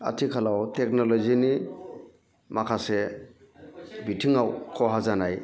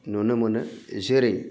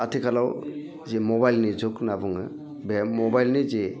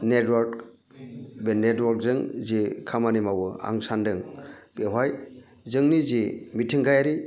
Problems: none marked